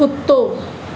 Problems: constant background noise, echo